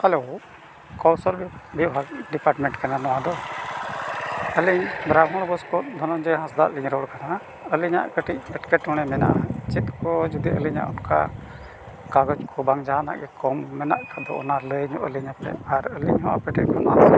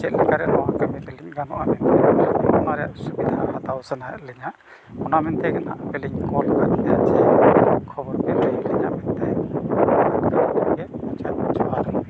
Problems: constant background noise, low volume